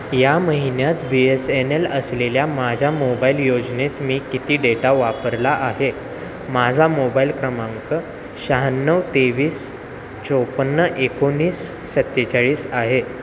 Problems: constant background noise, continuous background conversations